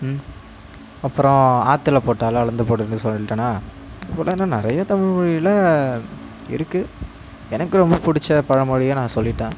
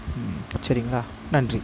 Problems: none marked